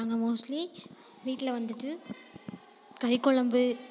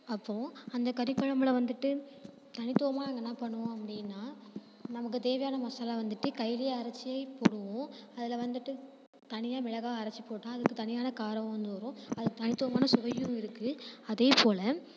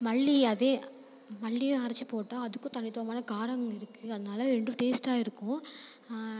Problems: constant background noise